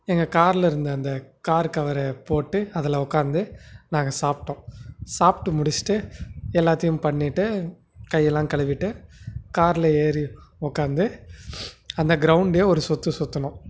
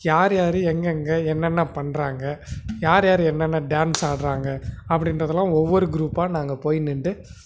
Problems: constant background noise